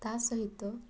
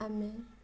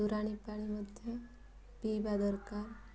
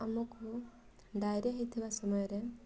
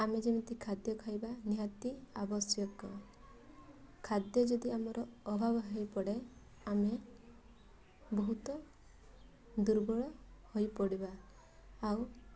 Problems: constant background noise